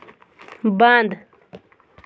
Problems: constant background noise